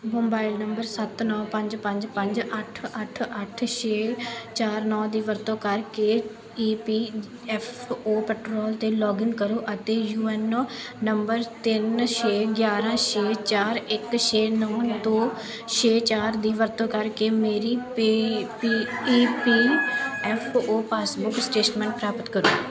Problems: background conversations at intervals